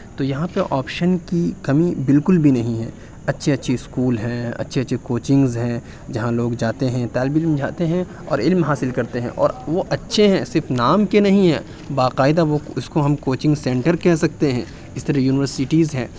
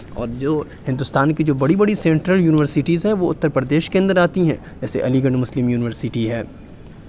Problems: background conversations at intervals